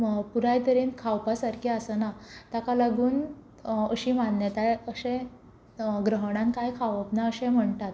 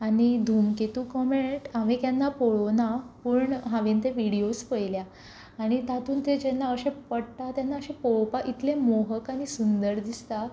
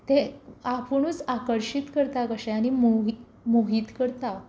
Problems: background sounds at intervals